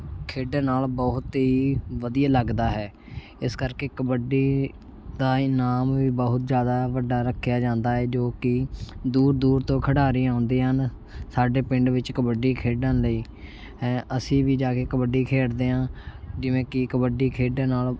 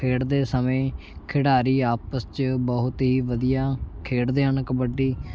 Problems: constant background noise